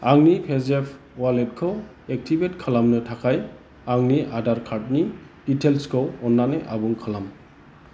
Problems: constant background noise